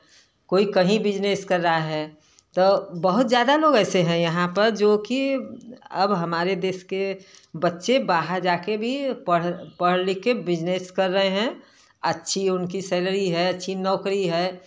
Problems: background sounds at intervals